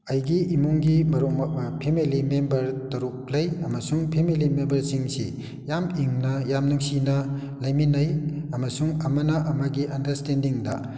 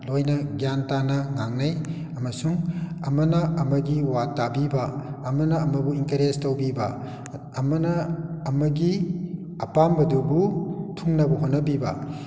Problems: none marked